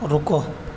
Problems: constant background noise